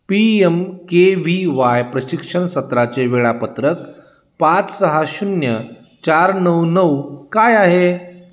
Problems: none marked